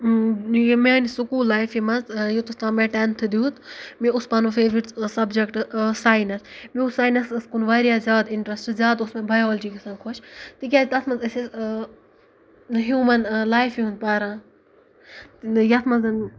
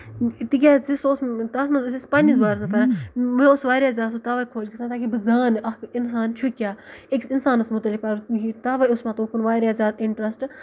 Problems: background sounds at intervals, background conversations at intervals